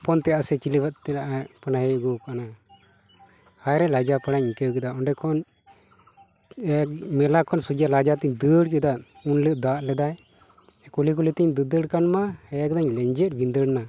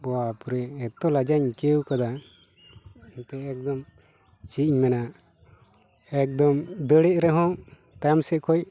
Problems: constant background noise, background conversations at intervals